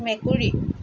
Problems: constant background noise